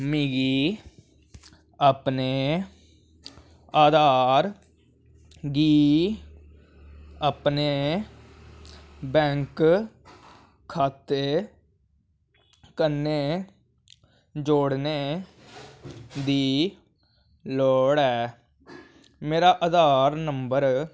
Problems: none marked